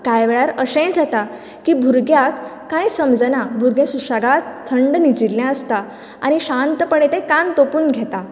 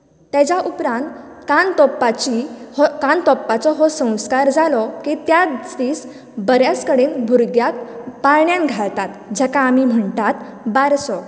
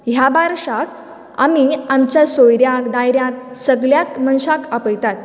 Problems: none marked